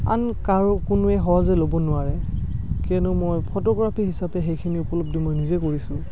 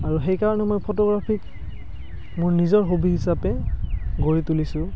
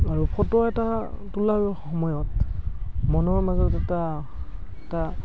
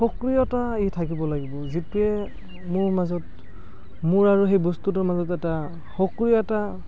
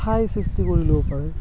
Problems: constant background noise